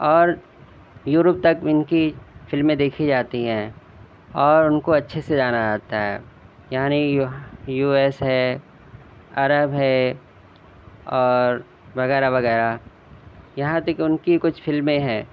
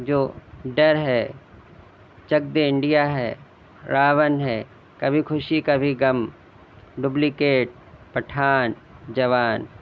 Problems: none marked